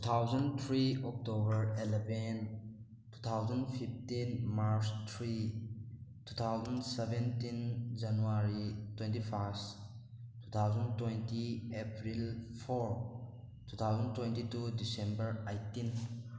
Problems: background sounds at intervals